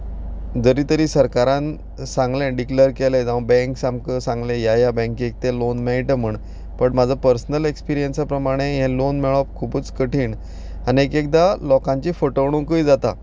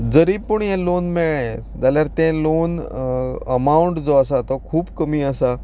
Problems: none marked